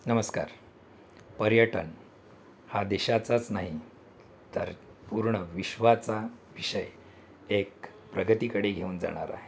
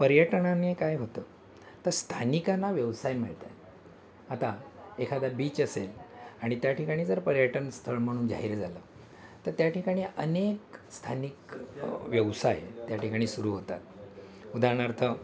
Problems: constant background noise, continuous background conversations